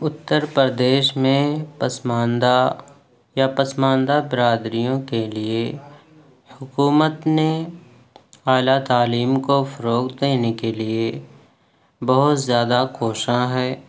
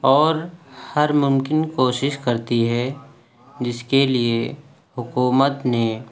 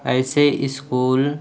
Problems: none marked